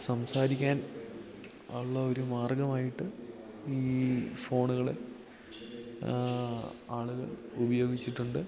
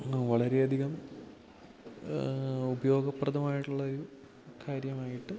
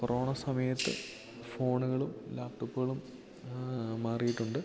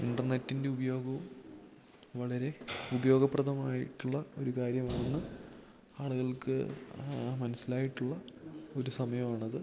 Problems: background sounds at intervals